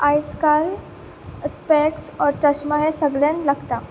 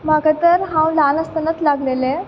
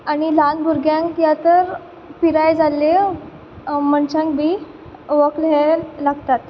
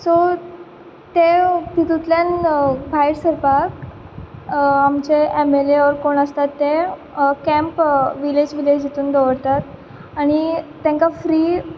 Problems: background sounds at intervals